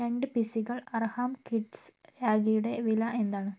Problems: none marked